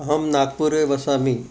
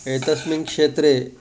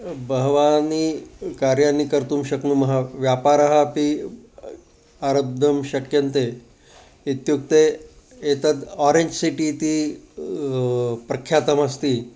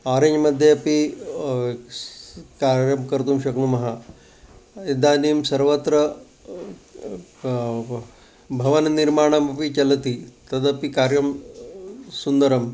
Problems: constant background noise